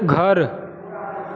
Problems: constant background noise